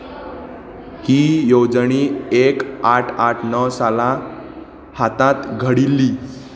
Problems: constant background noise, background conversations at intervals